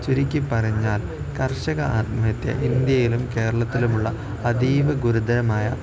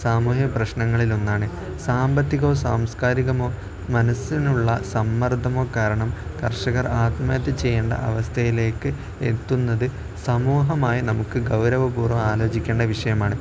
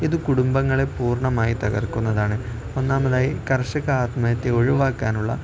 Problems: none marked